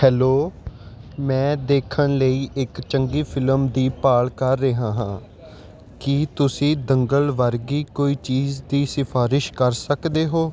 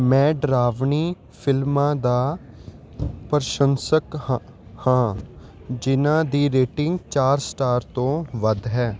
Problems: none marked